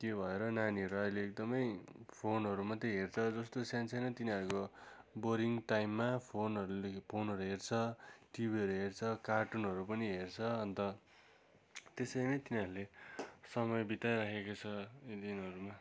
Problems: none marked